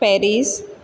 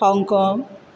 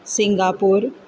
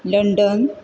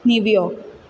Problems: background sounds at intervals